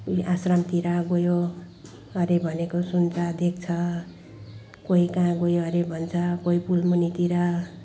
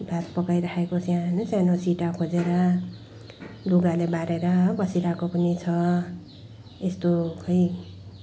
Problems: background sounds at intervals